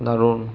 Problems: low volume